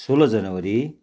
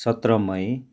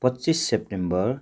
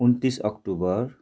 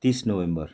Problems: constant background noise